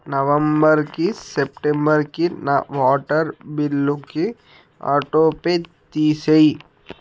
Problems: background sounds at intervals